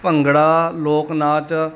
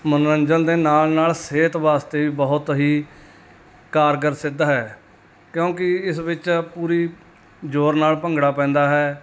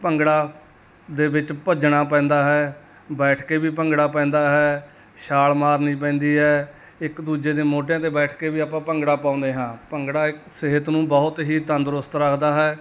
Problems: none marked